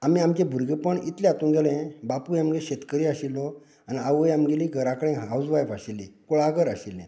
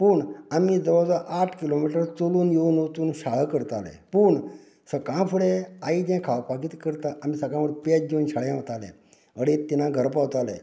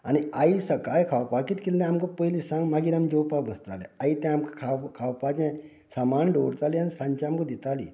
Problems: continuous background conversations